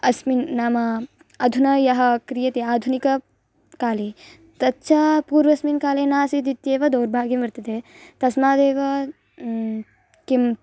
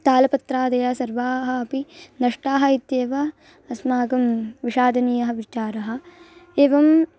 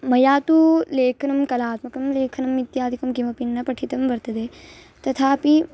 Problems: constant background noise